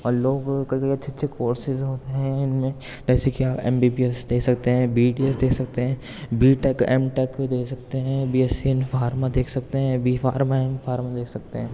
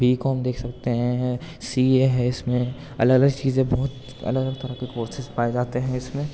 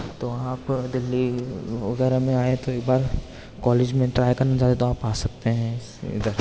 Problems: constant background noise, background conversations at intervals